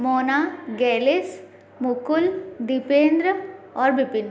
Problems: constant background noise, background conversations at intervals